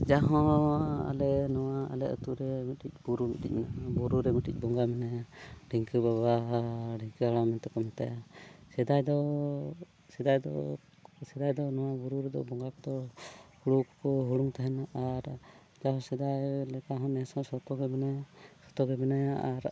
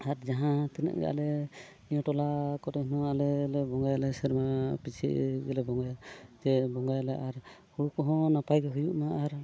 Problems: background sounds at intervals, low volume